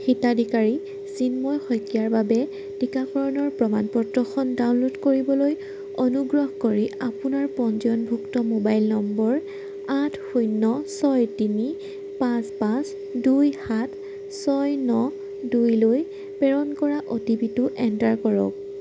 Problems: none marked